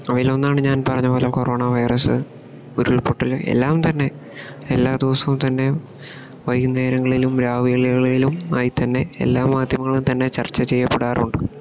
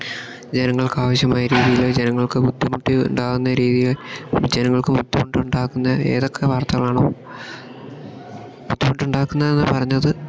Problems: background sounds at intervals